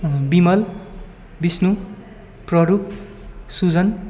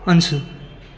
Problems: constant background noise, continuous background conversations